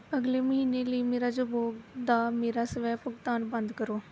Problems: none marked